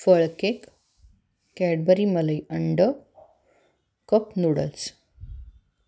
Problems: none marked